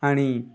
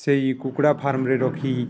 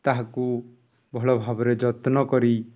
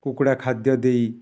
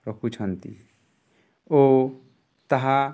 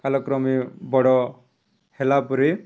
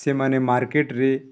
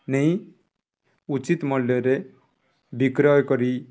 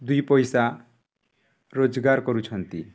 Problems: background conversations at intervals